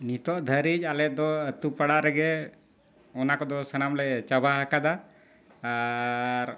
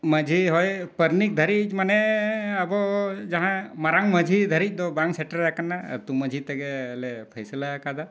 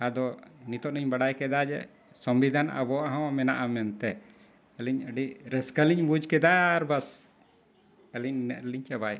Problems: constant background noise